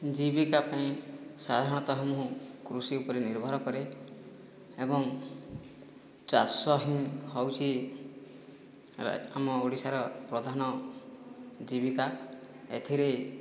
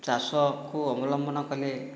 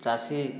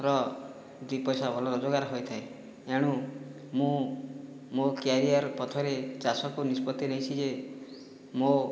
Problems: none marked